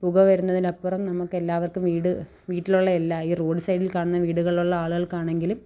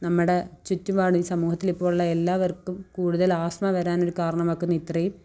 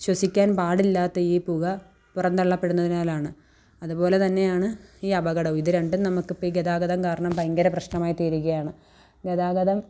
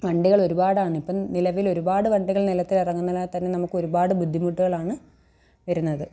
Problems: none marked